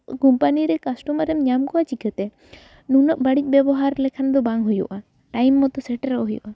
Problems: background sounds at intervals